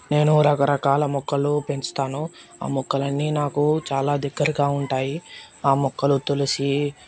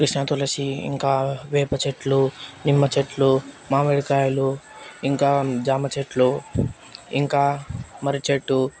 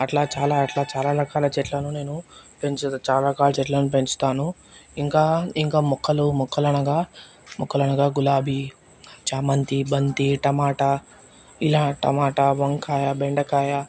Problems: background sounds at intervals